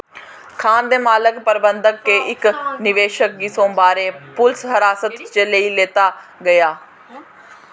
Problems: constant background noise